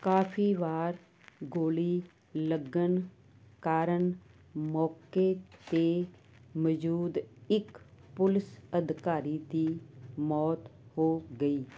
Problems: none marked